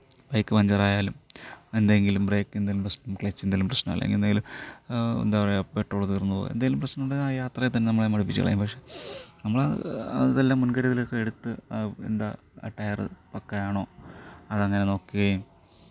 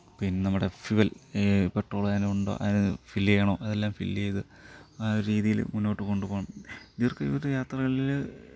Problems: none marked